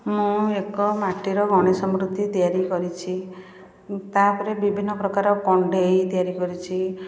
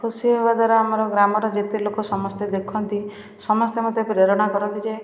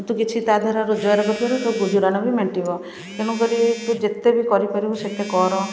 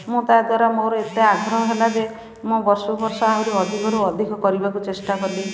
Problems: constant background noise, continuous background conversations